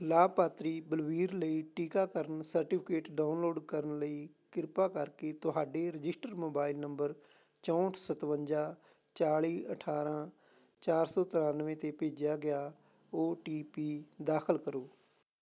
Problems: none marked